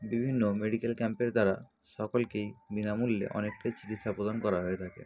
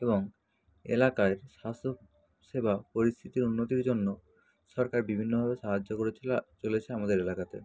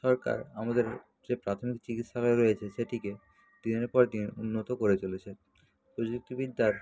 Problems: constant background noise, background conversations at intervals